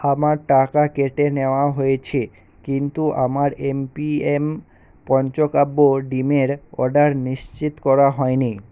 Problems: constant background noise